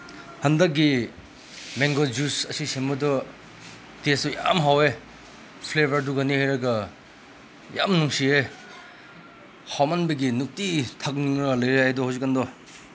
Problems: constant background noise